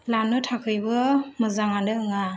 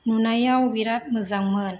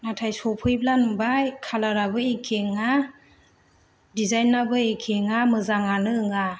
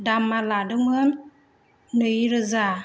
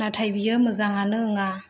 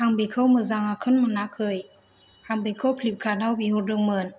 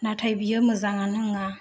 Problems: none marked